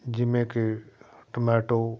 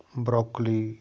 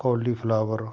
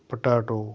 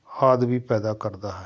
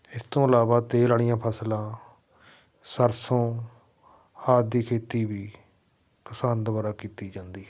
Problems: background sounds at intervals